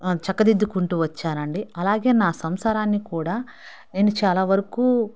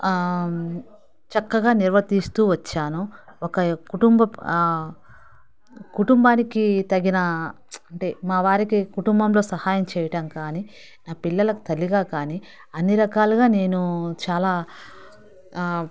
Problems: background sounds at intervals